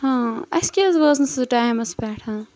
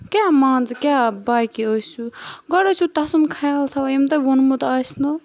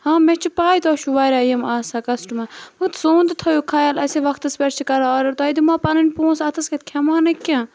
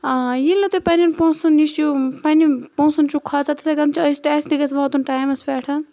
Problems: background sounds at intervals